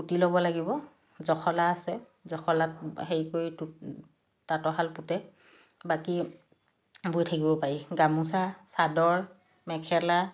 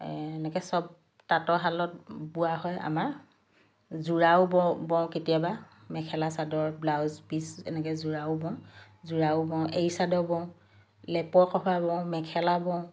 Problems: background sounds at intervals